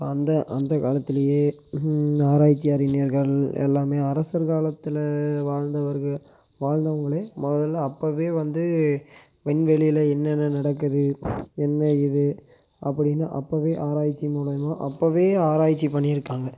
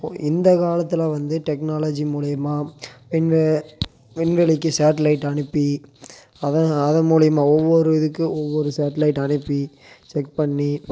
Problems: constant background noise